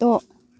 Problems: none marked